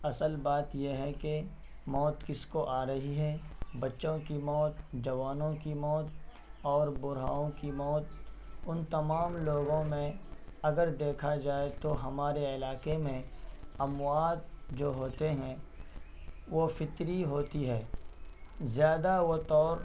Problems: constant background noise